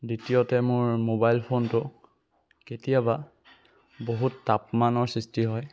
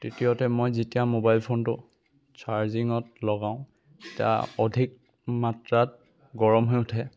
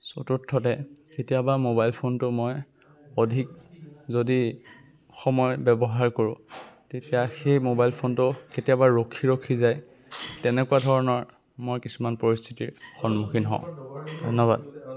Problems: none marked